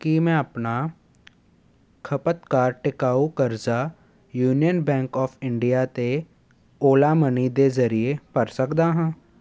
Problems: none marked